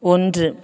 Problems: none marked